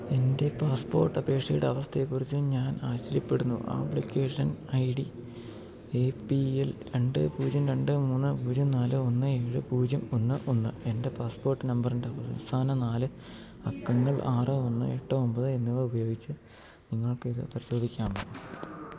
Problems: low volume